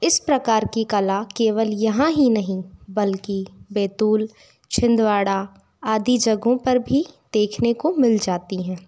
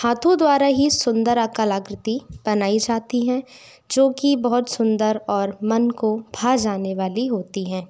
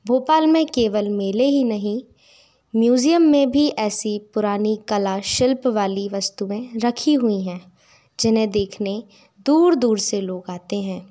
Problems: background sounds at intervals